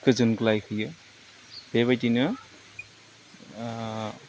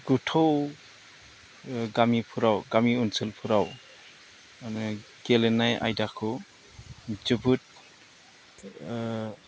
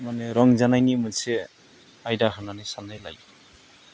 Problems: constant background noise